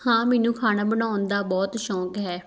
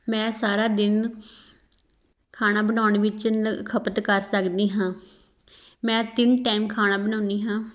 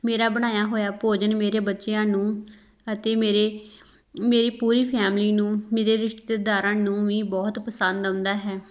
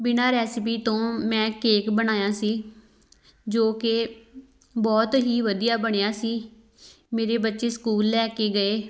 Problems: none marked